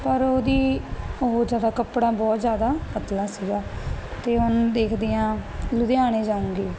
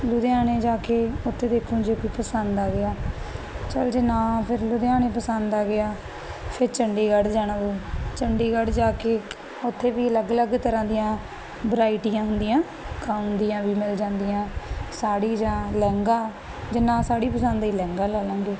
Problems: none marked